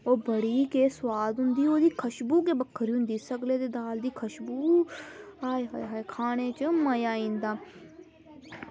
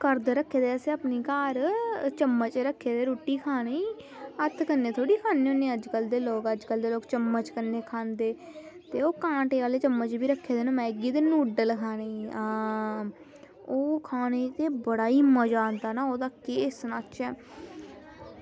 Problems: none marked